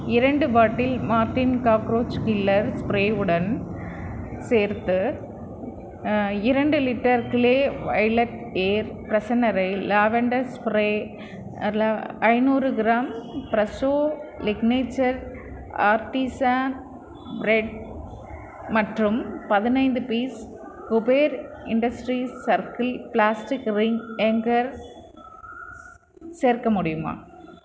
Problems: background sounds at intervals